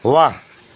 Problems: none marked